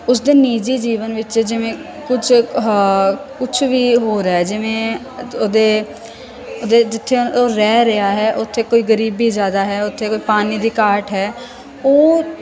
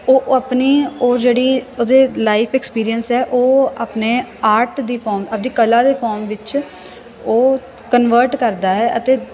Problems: constant background noise